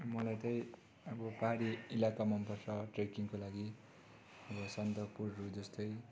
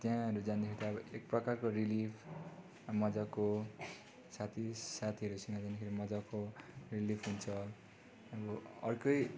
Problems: constant background noise